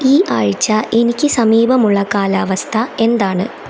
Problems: constant background noise